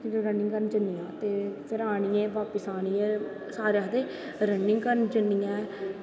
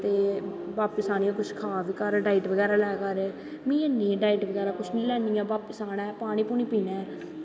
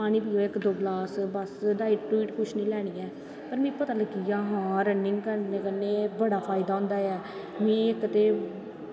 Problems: constant background noise, echo